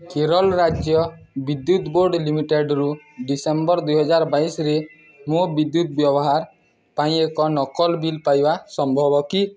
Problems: constant background noise